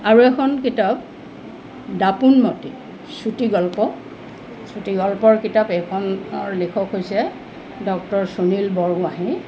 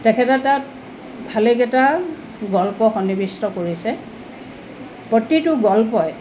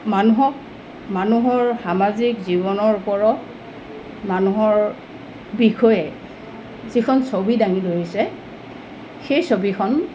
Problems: constant background noise